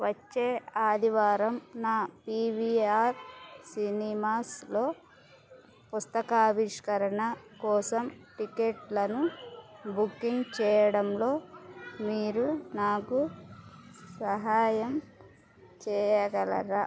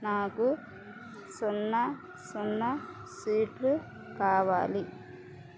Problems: constant background noise